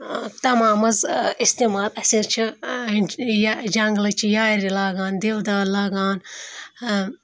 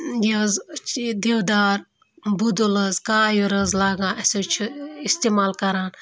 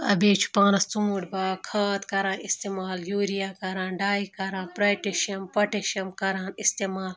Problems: background sounds at intervals